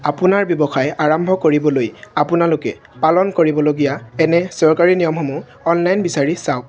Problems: none marked